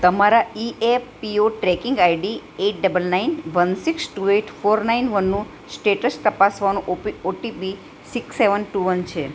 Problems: none marked